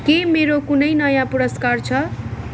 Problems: constant background noise